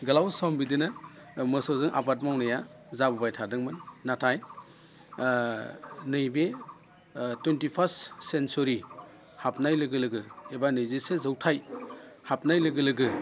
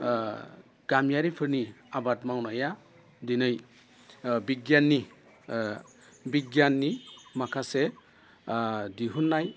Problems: constant background noise